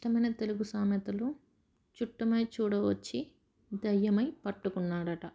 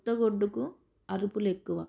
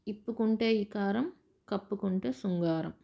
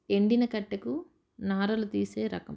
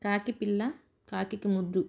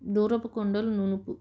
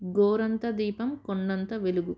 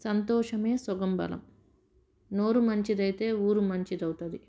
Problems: none marked